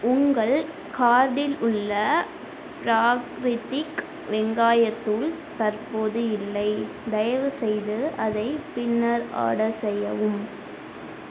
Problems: constant background noise